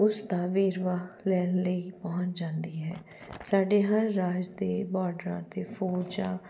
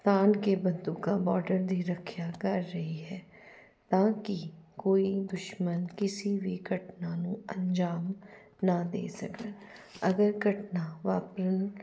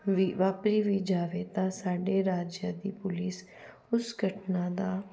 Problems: none marked